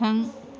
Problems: constant background noise